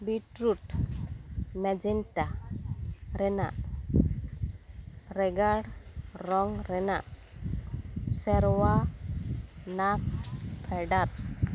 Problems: constant background noise